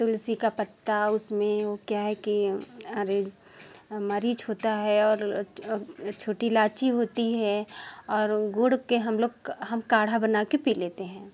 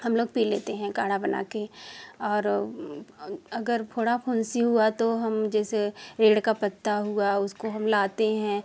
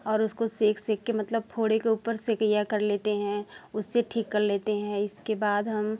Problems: background sounds at intervals